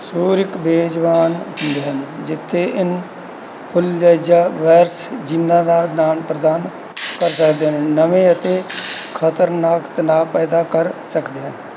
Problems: constant background noise